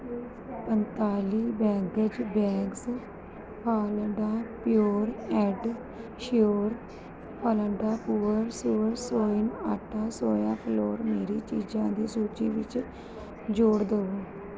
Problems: none marked